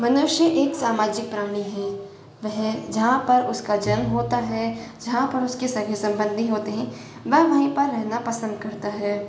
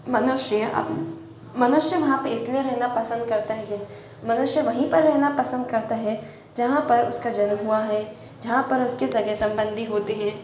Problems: echo